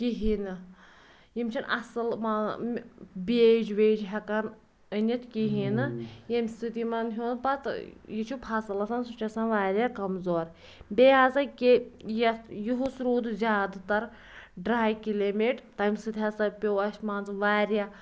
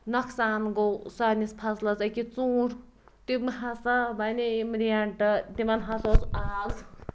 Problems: background sounds at intervals